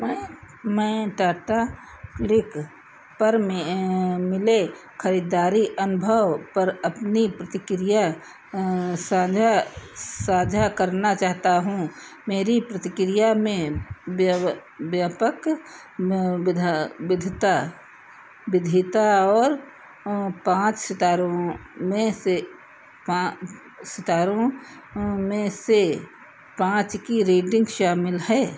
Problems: none marked